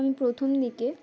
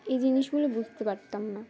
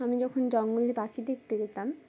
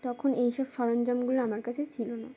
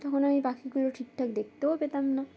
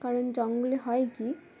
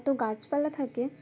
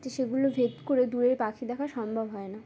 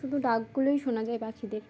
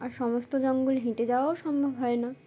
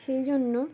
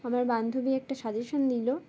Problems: constant background noise